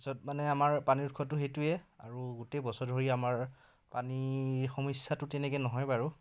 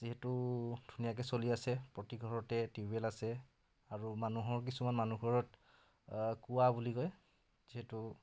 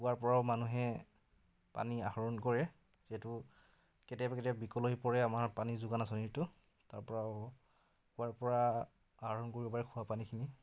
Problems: background conversations at intervals